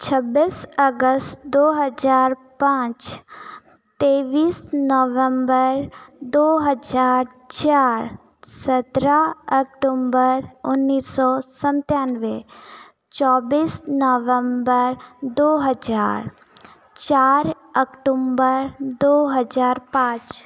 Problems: none marked